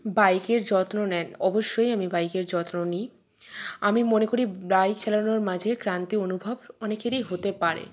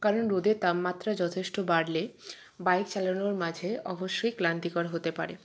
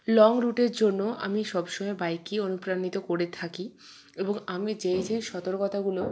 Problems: none marked